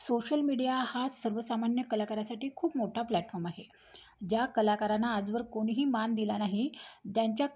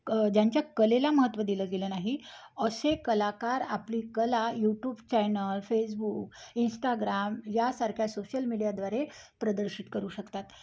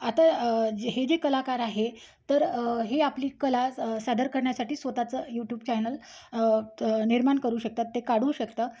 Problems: background sounds at intervals